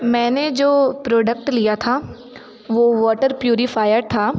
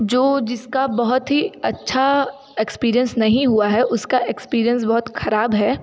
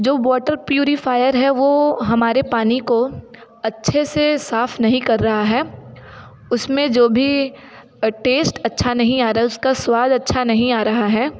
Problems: constant background noise, continuous background conversations